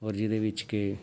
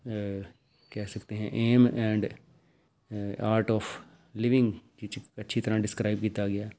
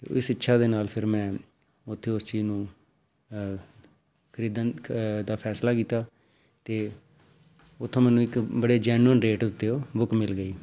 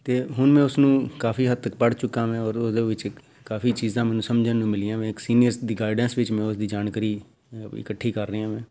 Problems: none marked